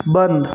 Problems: background sounds at intervals